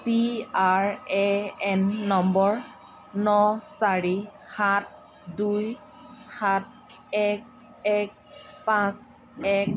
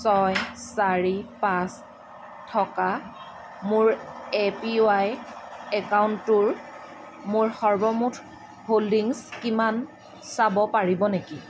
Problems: constant background noise, background conversations at intervals